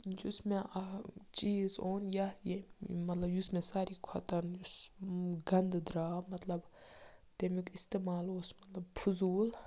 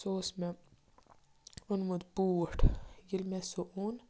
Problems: background sounds at intervals, low volume